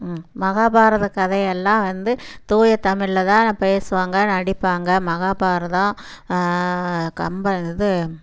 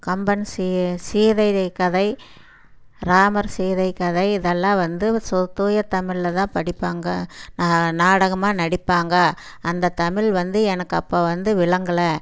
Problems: background sounds at intervals